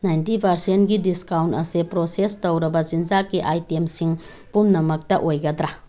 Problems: background sounds at intervals